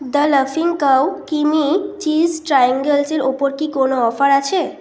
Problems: constant background noise